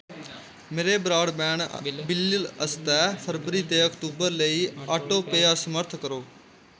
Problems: background sounds at intervals